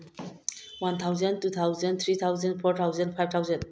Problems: low volume